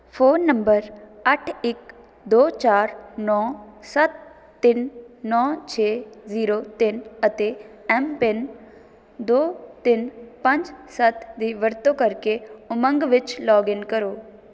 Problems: none marked